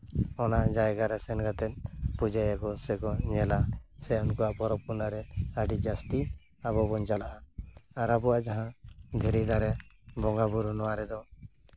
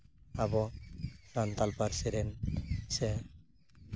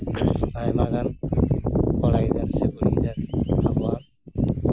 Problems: constant background noise